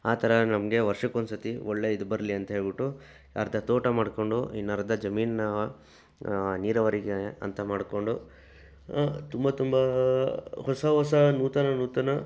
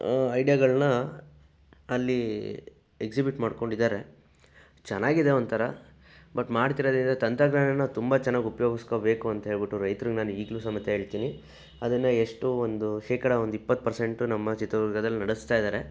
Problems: background sounds at intervals